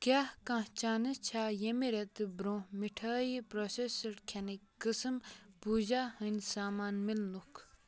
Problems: none marked